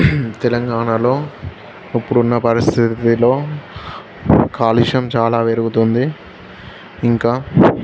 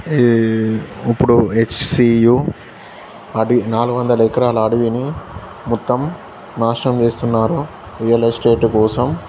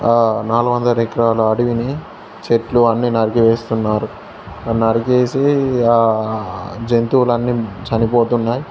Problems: constant background noise, background conversations at intervals